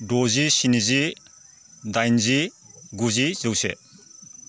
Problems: none marked